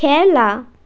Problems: constant background noise